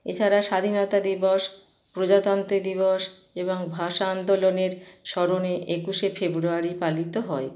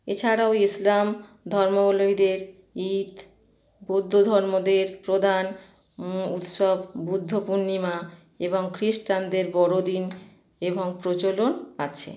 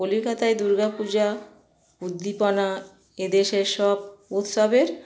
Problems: none marked